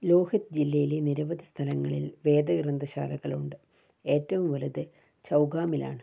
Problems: none marked